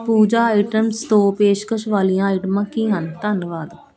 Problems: constant background noise